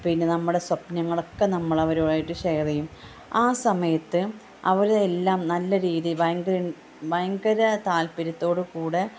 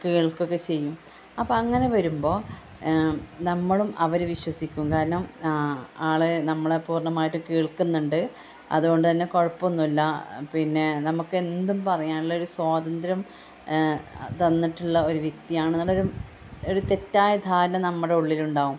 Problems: constant background noise, low volume